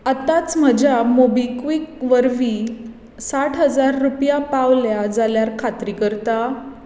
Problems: echo